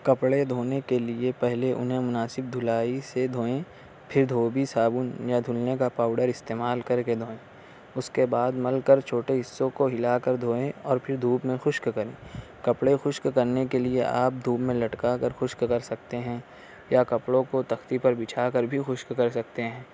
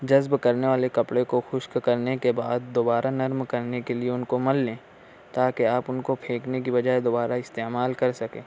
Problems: constant background noise